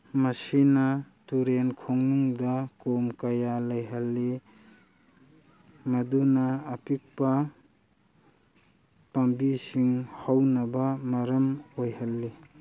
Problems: none marked